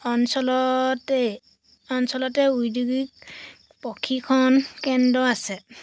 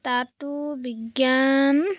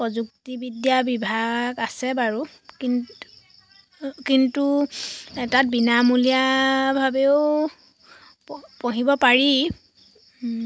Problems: constant background noise